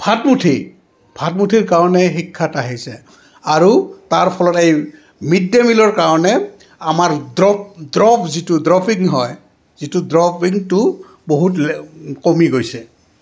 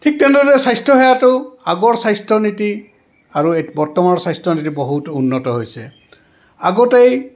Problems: constant background noise, background conversations at intervals